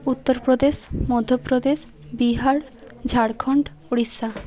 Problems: constant background noise, continuous background conversations